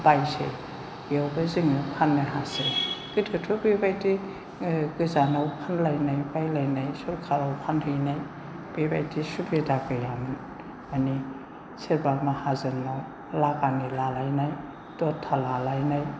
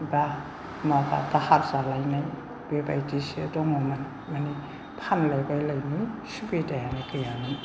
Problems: low volume